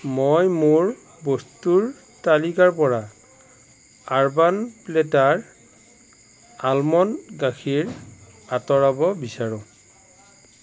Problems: constant background noise